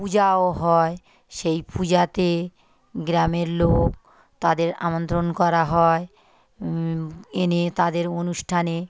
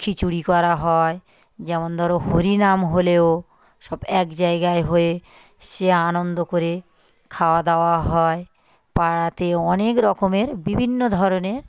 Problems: none marked